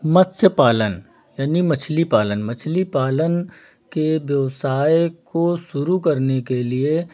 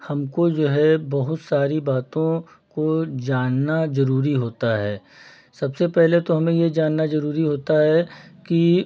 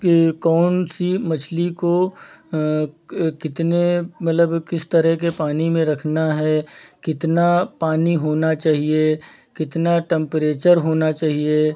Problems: background sounds at intervals